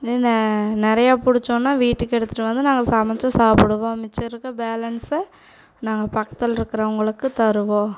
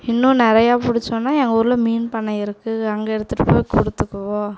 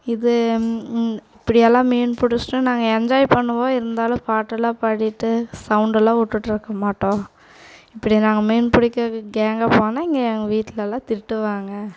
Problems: background sounds at intervals